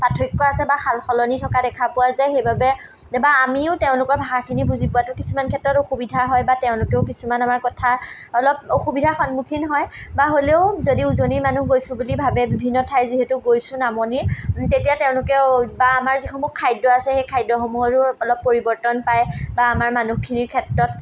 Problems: none marked